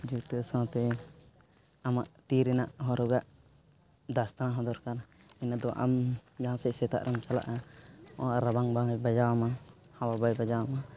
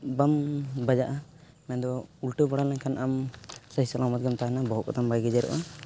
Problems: constant background noise